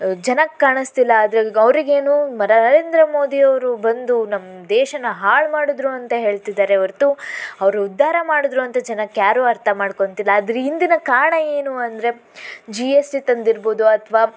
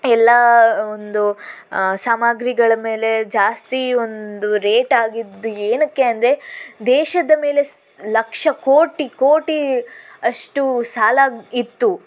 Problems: constant background noise